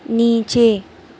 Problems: constant background noise